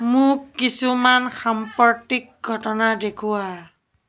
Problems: background conversations at intervals